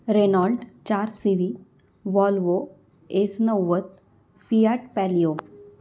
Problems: none marked